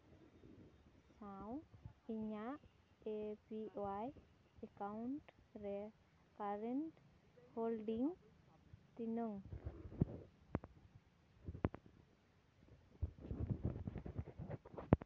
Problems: low volume